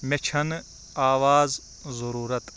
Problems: constant background noise